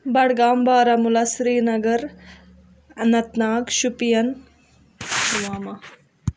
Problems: none marked